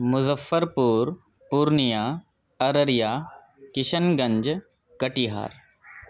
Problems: none marked